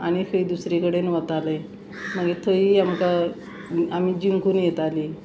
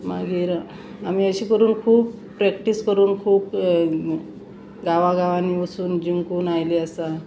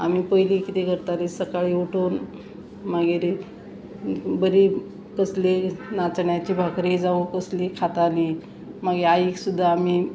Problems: constant background noise